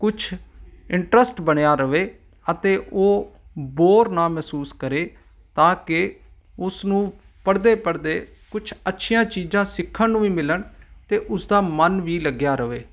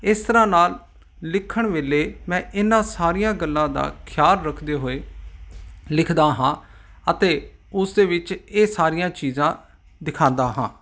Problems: none marked